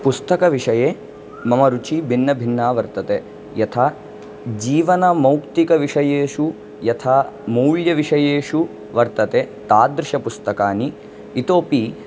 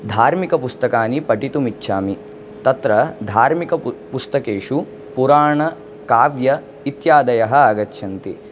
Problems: background sounds at intervals